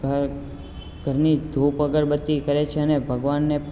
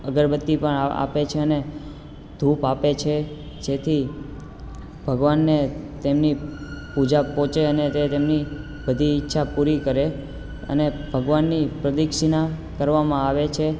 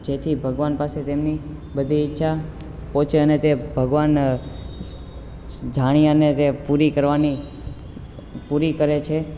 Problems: constant background noise